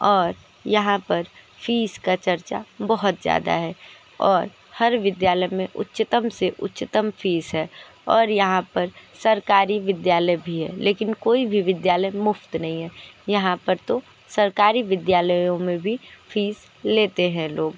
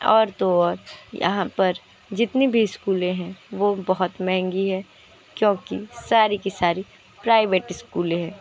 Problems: constant background noise, continuous background conversations